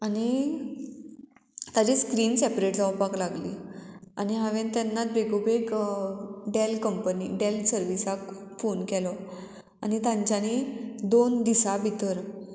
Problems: none marked